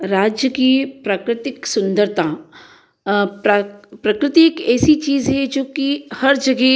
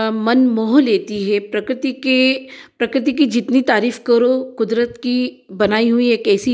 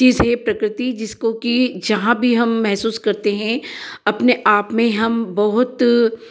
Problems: echo